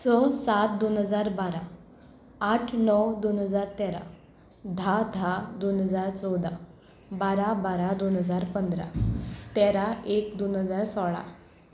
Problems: constant background noise